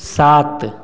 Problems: background sounds at intervals, background conversations at intervals